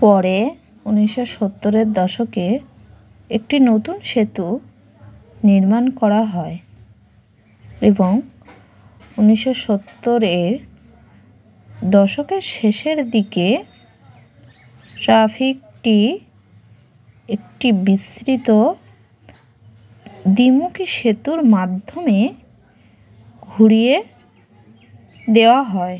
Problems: none marked